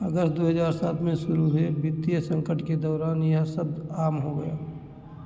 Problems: echo